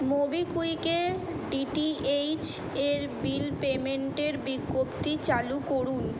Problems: none marked